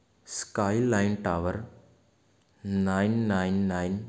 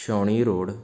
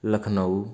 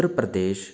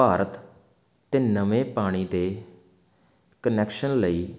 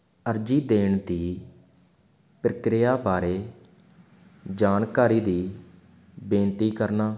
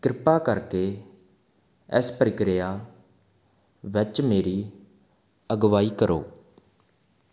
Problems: constant background noise